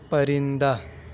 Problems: none marked